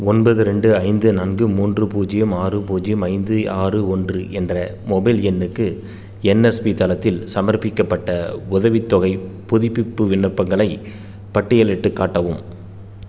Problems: none marked